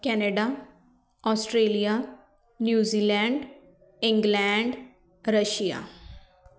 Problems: background conversations at intervals